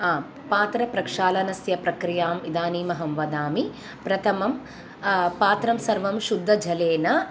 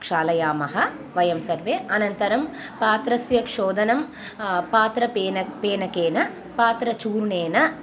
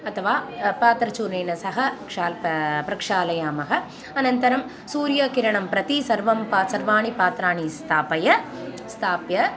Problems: none marked